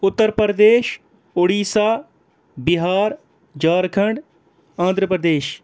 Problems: background sounds at intervals